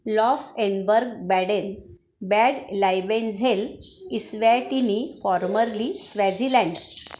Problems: none marked